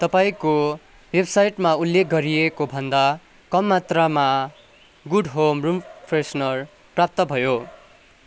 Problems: none marked